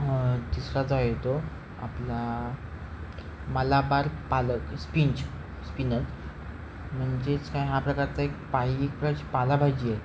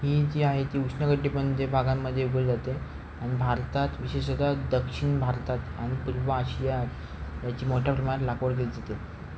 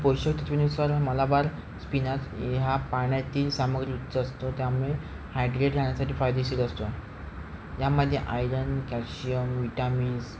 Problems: constant background noise